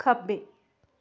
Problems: none marked